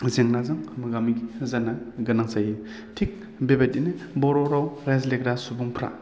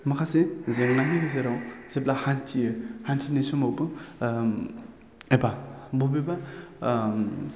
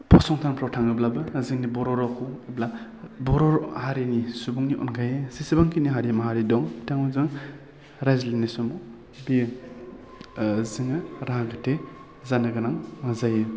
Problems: none marked